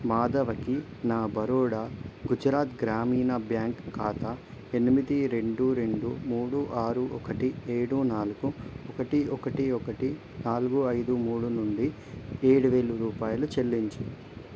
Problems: constant background noise